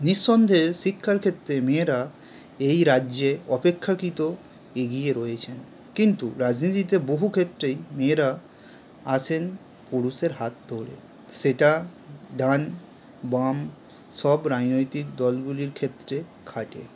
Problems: background sounds at intervals